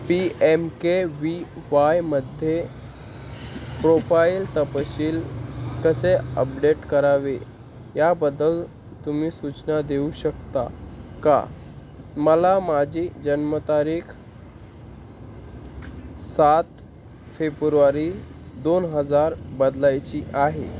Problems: constant background noise